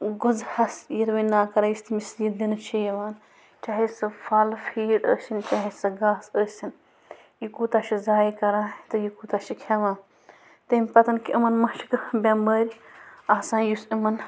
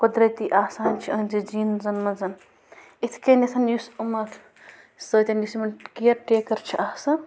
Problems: constant background noise